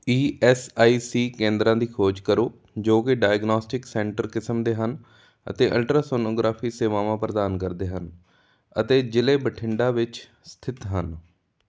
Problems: none marked